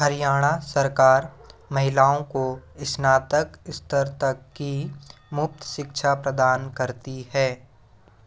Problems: none marked